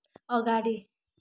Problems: continuous background conversations